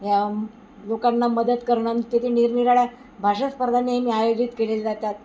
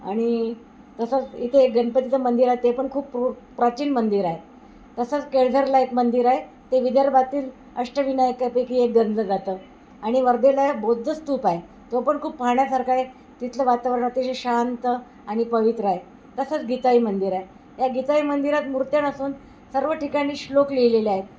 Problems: constant background noise